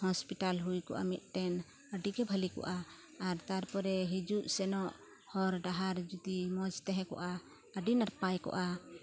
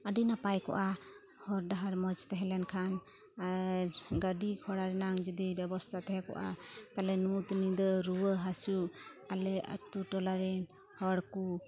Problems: none marked